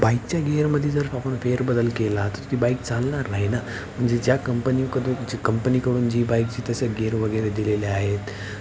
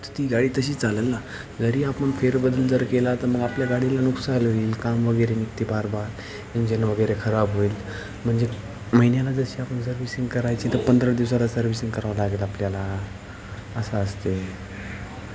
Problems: constant background noise, continuous background conversations